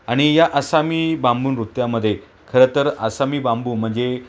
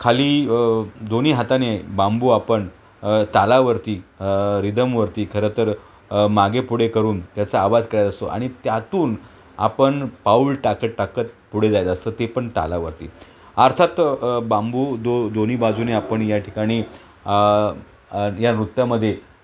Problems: background sounds at intervals